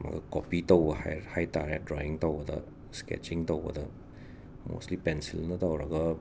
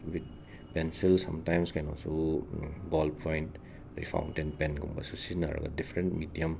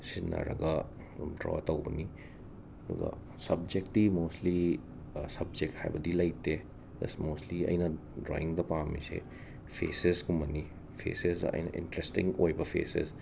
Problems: constant background noise, low volume